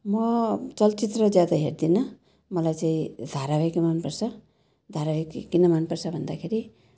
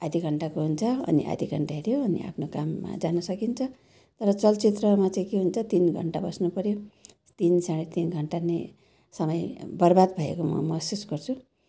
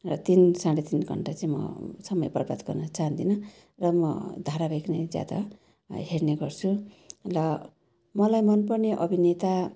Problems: none marked